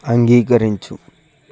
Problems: none marked